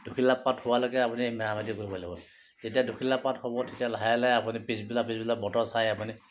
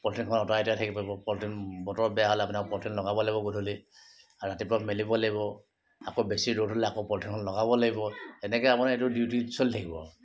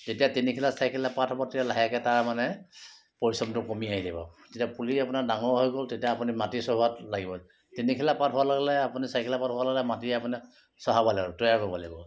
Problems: constant background noise, background conversations at intervals